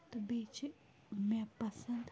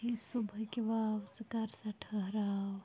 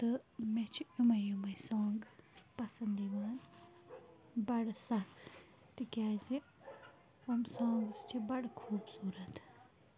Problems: background sounds at intervals, low volume